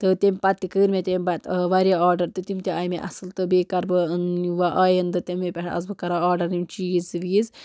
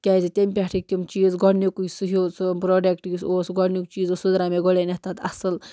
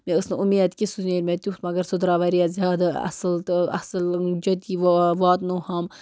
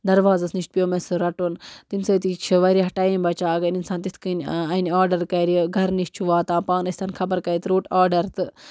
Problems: constant background noise